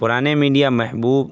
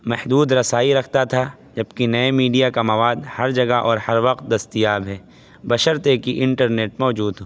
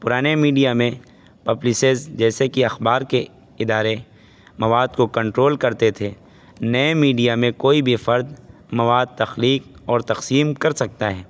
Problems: constant background noise